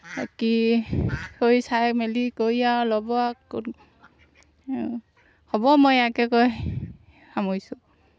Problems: none marked